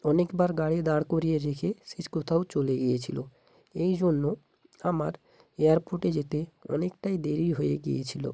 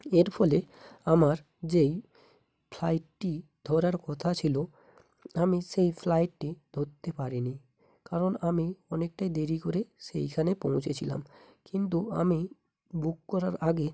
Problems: constant background noise, background conversations at intervals